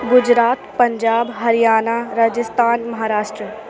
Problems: constant background noise